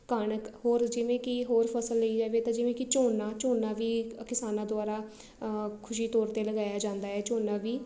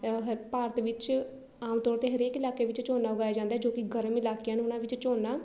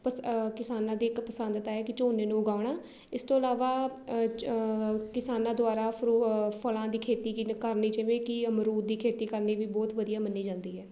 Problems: none marked